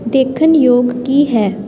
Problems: constant background noise